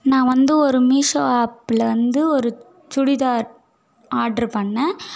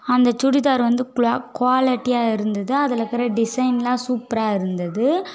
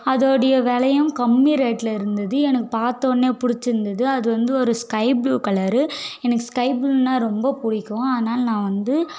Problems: none marked